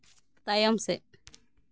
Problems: none marked